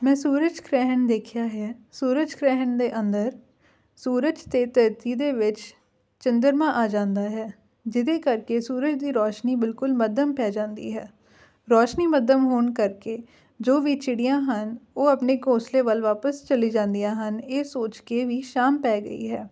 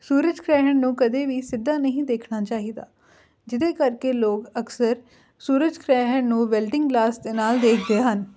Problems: background sounds at intervals